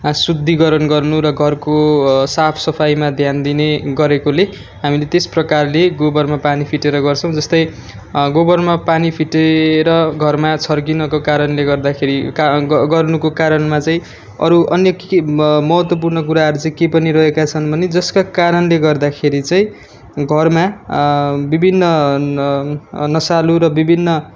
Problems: background sounds at intervals